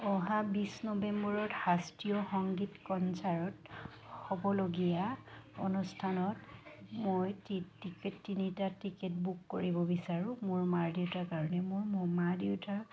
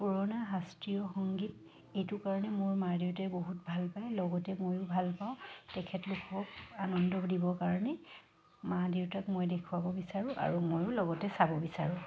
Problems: constant background noise